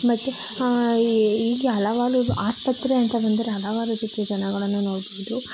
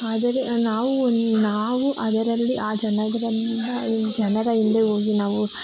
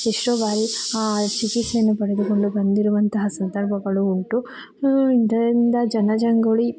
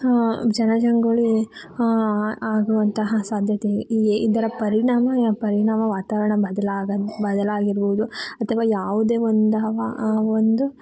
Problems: background sounds at intervals